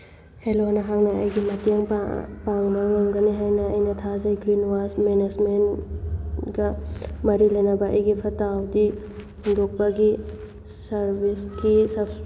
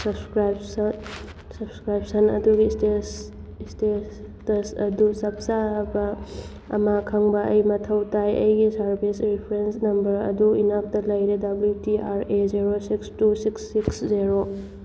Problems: background sounds at intervals